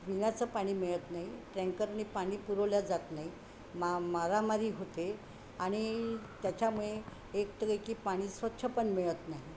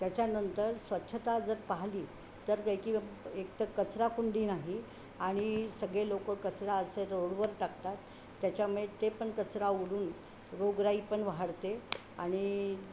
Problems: constant background noise